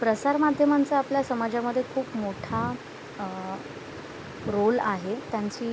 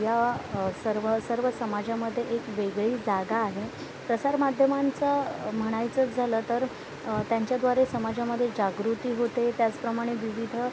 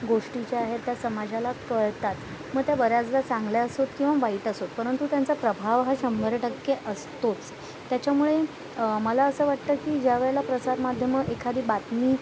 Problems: constant background noise